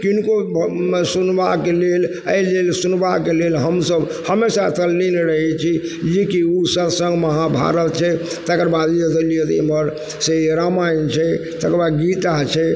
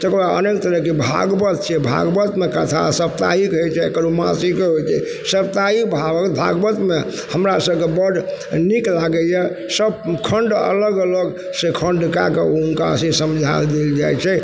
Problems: constant background noise